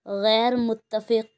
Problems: none marked